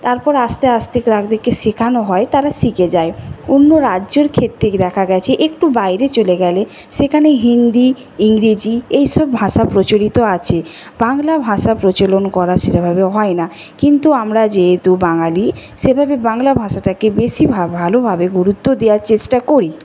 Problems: constant background noise